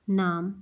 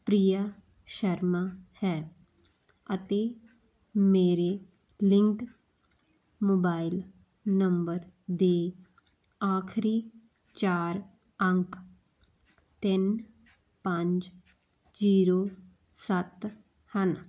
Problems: none marked